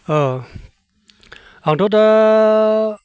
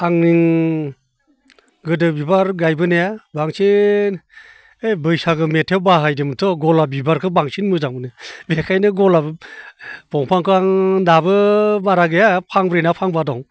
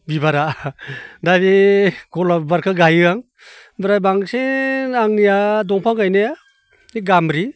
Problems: none marked